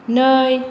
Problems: none marked